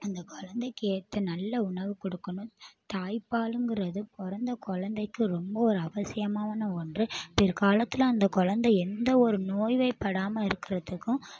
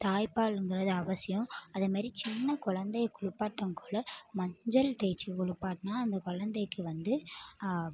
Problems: none marked